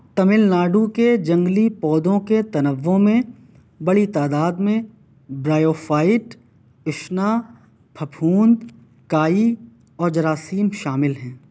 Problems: none marked